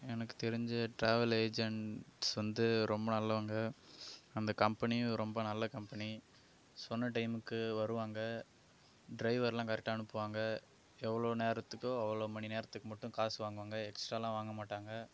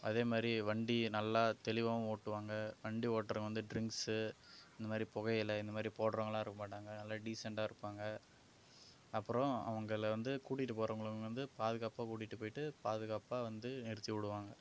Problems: background sounds at intervals